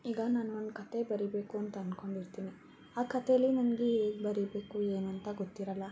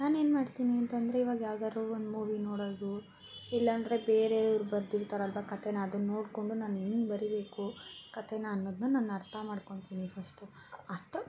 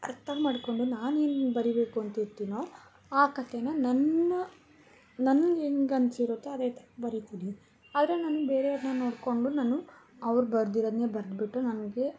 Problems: background sounds at intervals